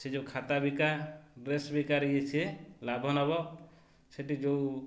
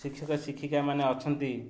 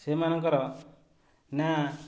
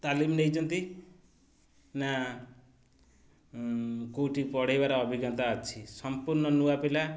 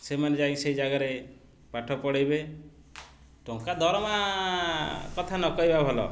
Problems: constant background noise